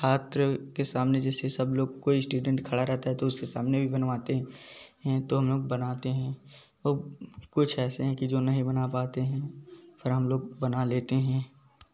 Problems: background sounds at intervals, background conversations at intervals